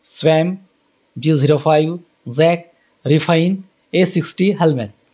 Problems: none marked